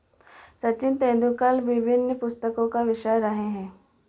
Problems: none marked